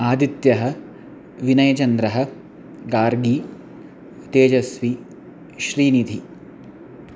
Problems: constant background noise